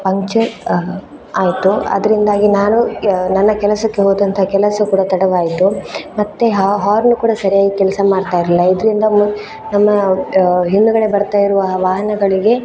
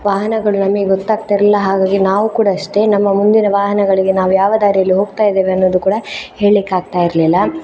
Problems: background sounds at intervals